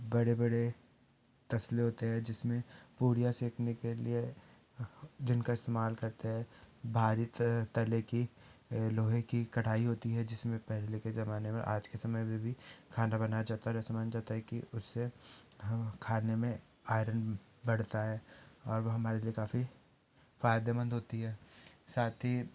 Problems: none marked